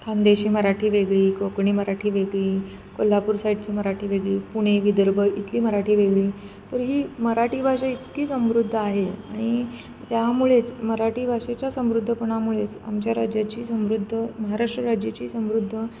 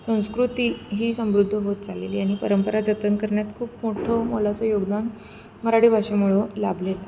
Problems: none marked